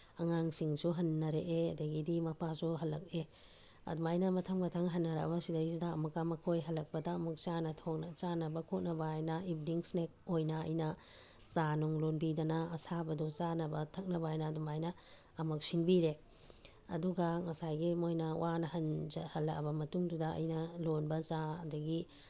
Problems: none marked